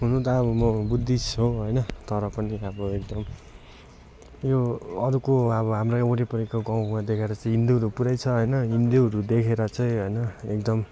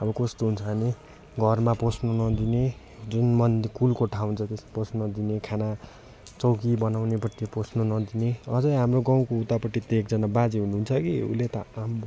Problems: constant background noise